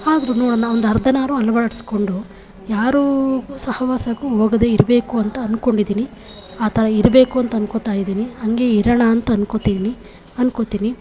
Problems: background sounds at intervals